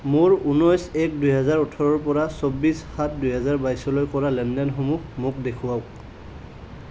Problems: none marked